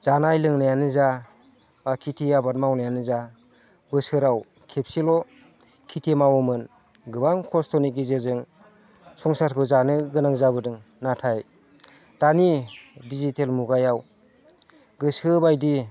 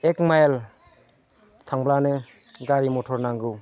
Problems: constant background noise